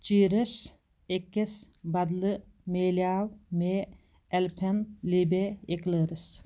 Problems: background sounds at intervals